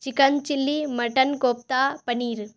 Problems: none marked